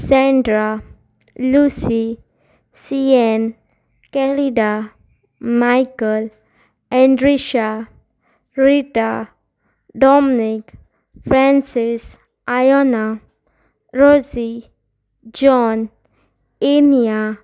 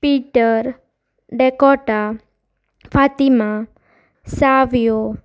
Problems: constant background noise